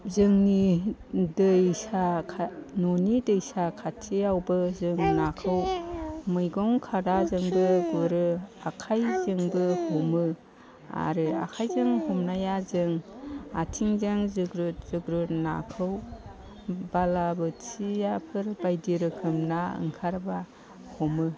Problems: constant background noise